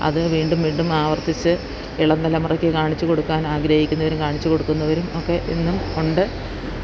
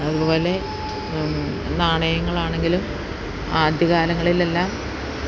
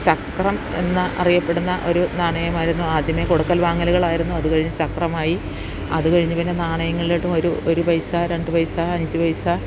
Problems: constant background noise